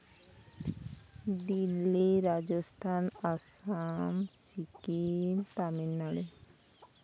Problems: constant background noise